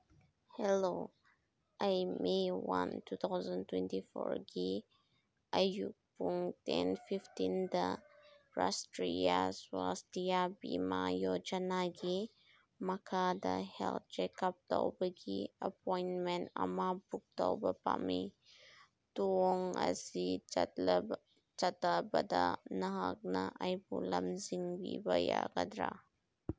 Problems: background sounds at intervals